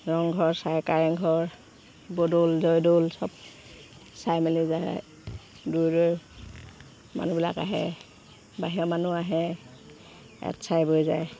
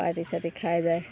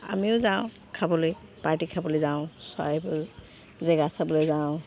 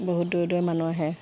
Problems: background sounds at intervals